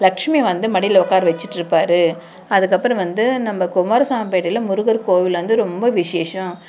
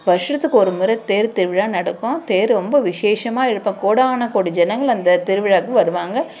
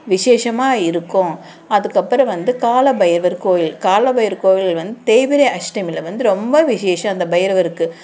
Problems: constant background noise